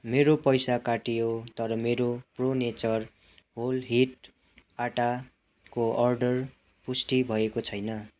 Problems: continuous background conversations